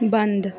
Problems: constant background noise